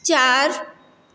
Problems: constant background noise, echo